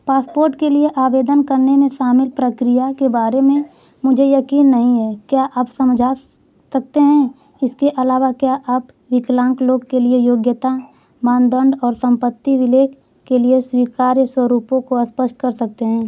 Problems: constant background noise